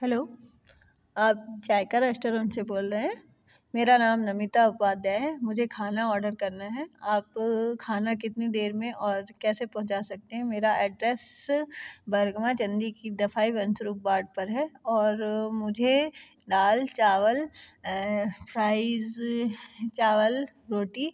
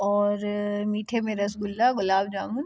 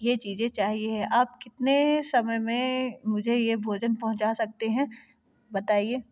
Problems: constant background noise